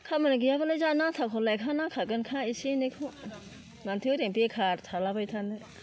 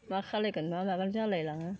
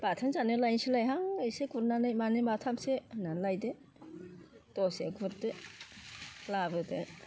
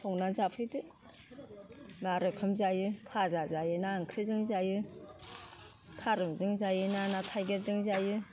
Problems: low volume